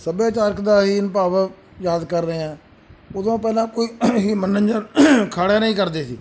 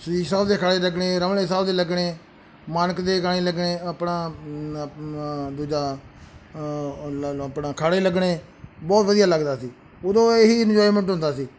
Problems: background sounds at intervals